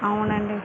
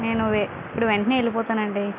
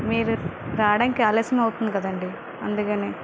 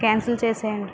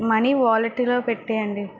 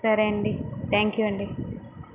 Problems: constant background noise